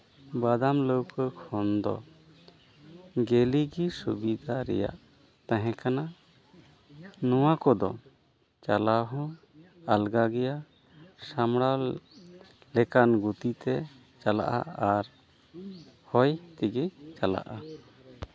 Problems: background conversations at intervals